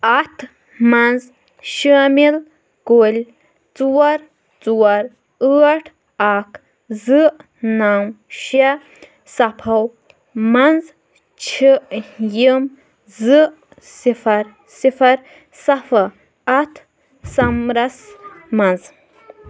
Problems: background conversations at intervals